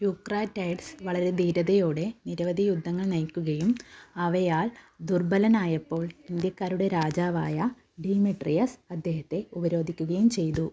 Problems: low volume